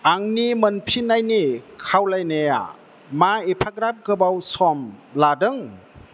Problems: none marked